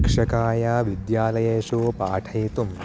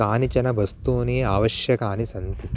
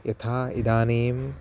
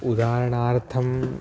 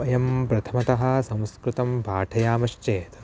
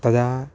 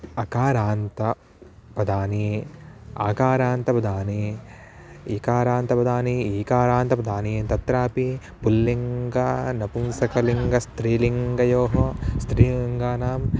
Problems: background sounds at intervals